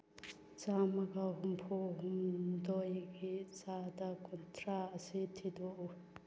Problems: background sounds at intervals